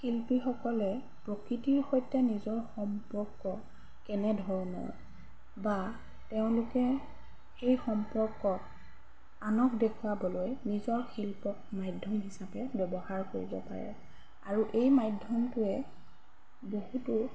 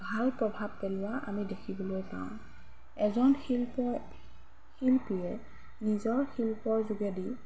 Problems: background sounds at intervals